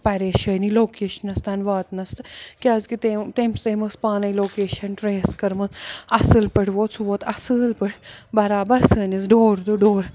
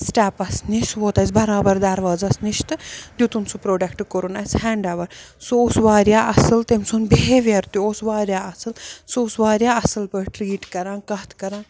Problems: none marked